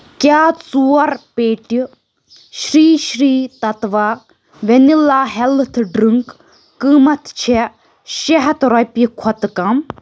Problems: none marked